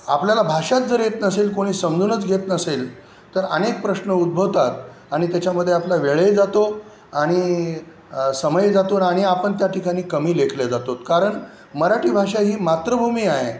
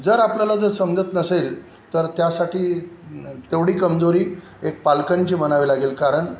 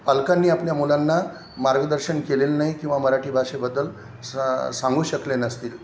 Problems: none marked